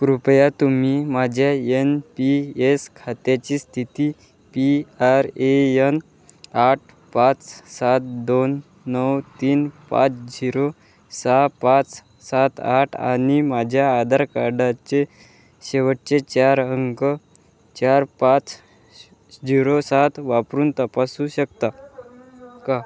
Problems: background sounds at intervals, background conversations at intervals